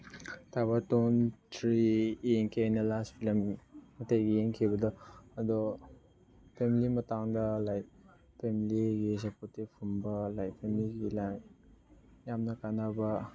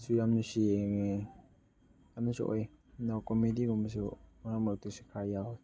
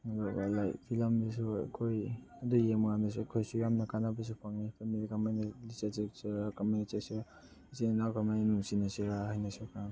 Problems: background sounds at intervals, background conversations at intervals